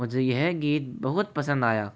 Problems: none marked